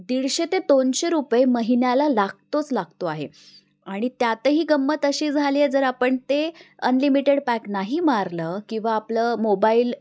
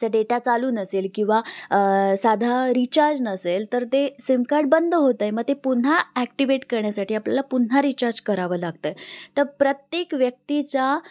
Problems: constant background noise